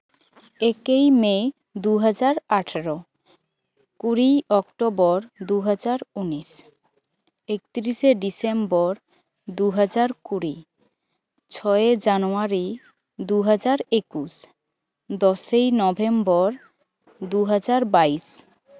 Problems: none marked